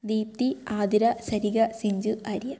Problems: none marked